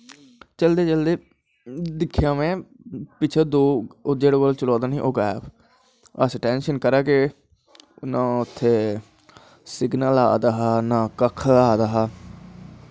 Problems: constant background noise